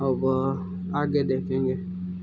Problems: background sounds at intervals